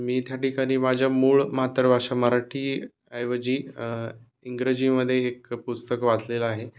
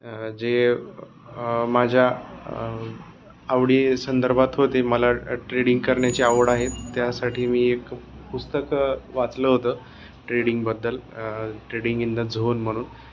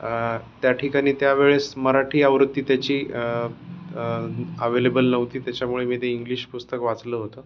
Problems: background sounds at intervals